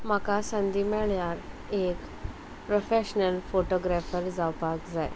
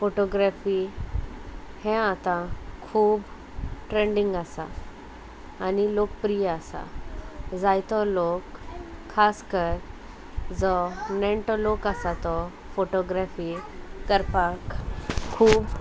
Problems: constant background noise